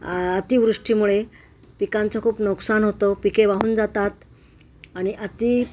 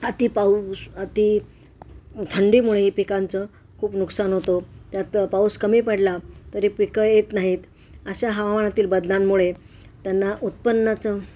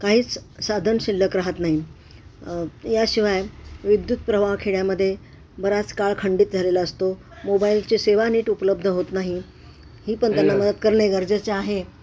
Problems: constant background noise, background conversations at intervals